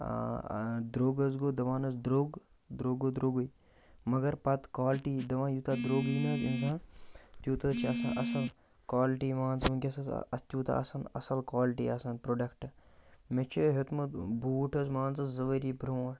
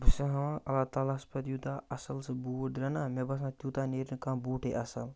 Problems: none marked